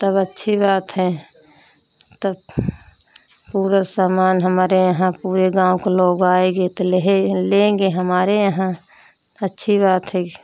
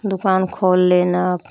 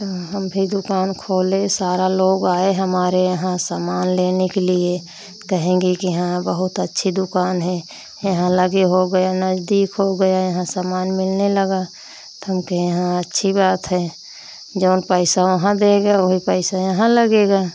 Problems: none marked